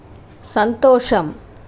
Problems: none marked